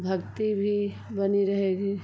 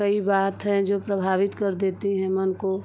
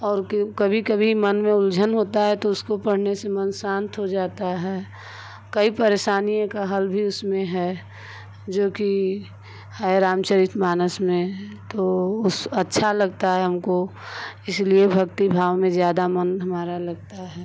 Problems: constant background noise